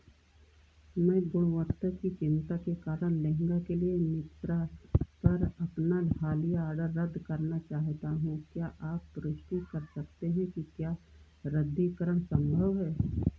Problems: low volume